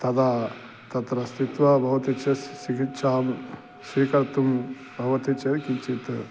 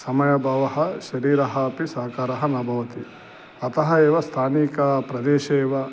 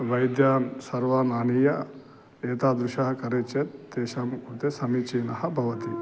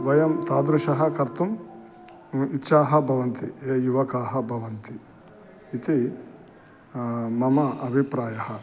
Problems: constant background noise